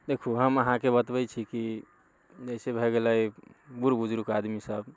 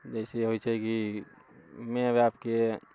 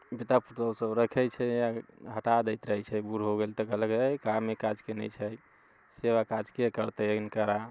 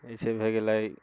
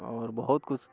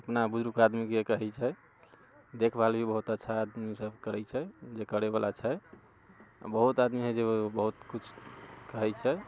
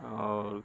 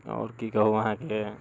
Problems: none marked